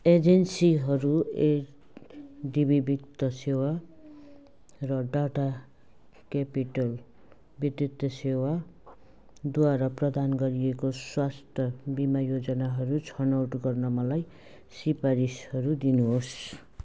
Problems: background sounds at intervals